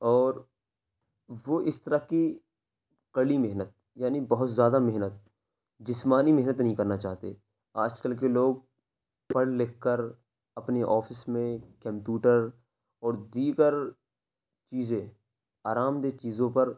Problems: none marked